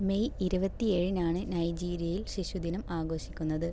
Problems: low volume